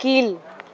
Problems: constant background noise